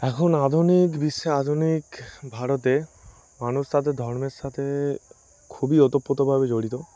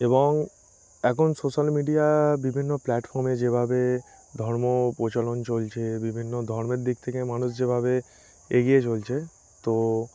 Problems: constant background noise